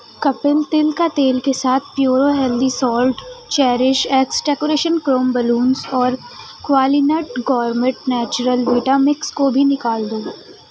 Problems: constant background noise, background conversations at intervals